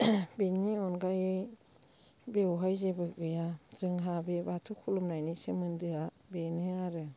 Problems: low volume